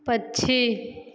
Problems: echo